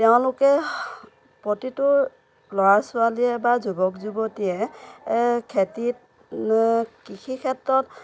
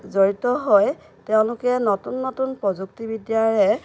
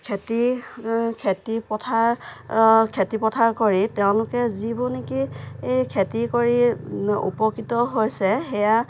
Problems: constant background noise